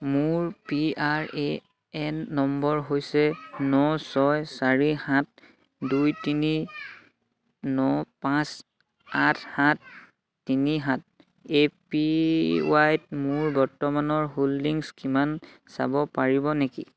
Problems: continuous background conversations